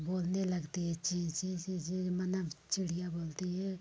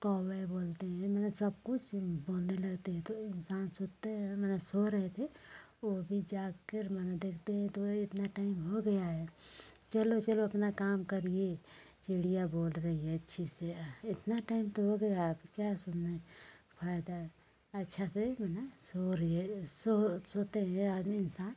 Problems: none marked